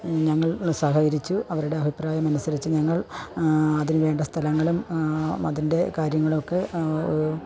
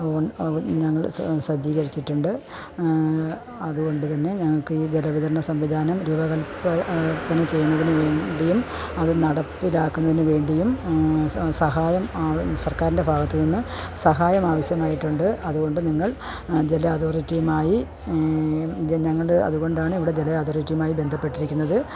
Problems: background sounds at intervals